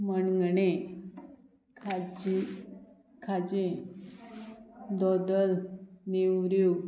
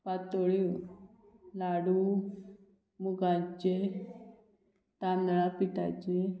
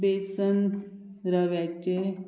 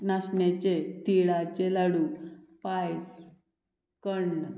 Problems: none marked